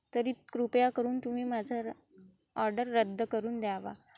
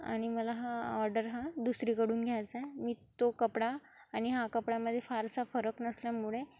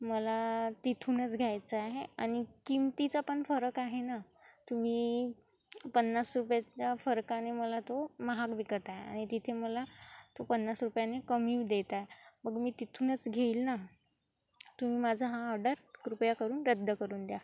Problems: constant background noise, continuous background conversations